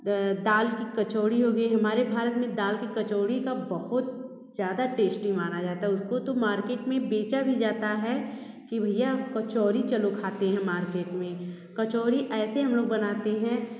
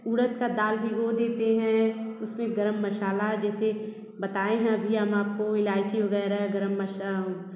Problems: constant background noise